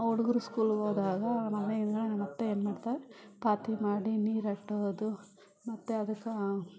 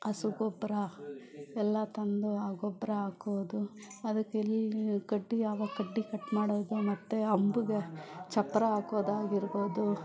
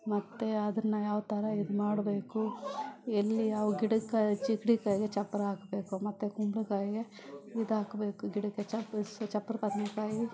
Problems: background sounds at intervals, background conversations at intervals